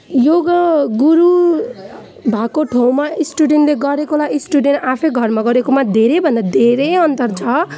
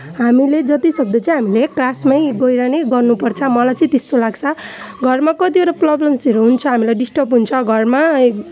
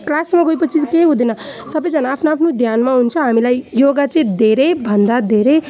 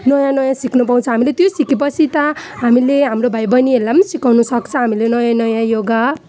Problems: none marked